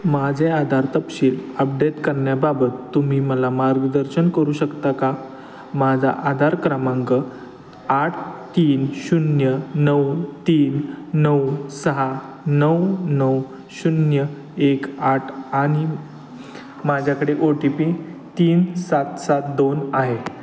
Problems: constant background noise, background conversations at intervals